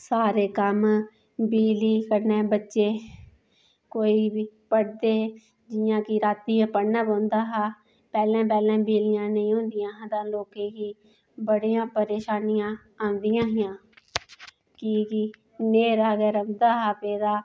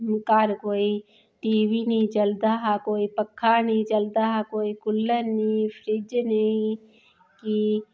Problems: none marked